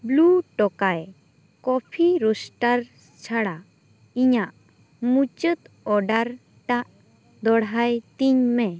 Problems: constant background noise